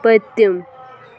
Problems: background sounds at intervals